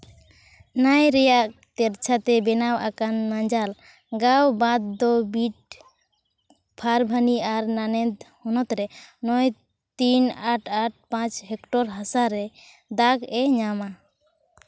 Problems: none marked